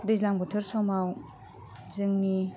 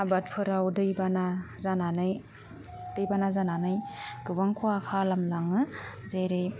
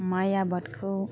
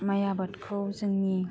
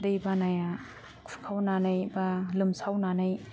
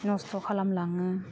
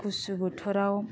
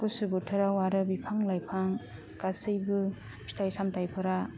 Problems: low volume